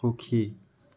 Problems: none marked